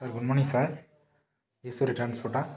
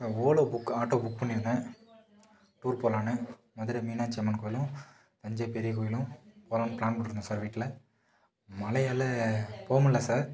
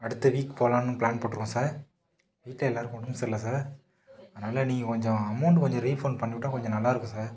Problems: background sounds at intervals